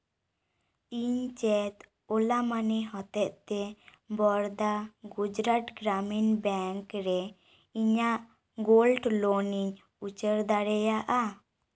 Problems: none marked